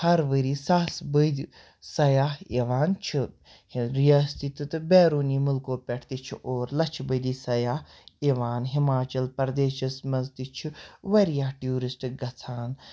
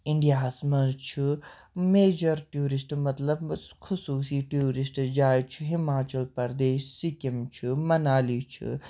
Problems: none marked